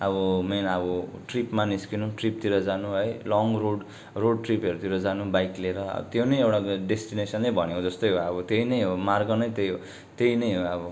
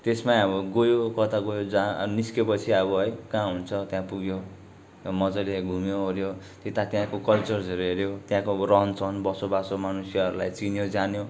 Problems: constant background noise